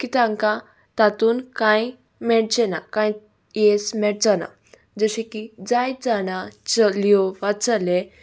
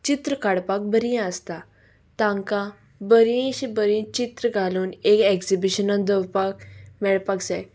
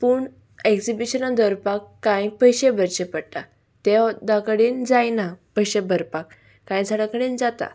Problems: background sounds at intervals